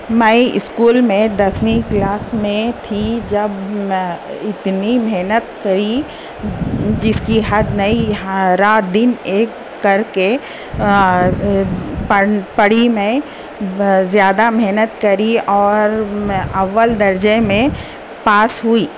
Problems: constant background noise